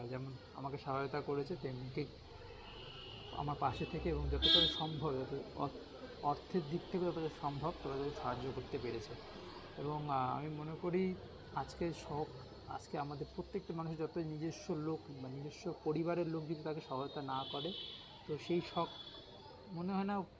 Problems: constant background noise, continuous background conversations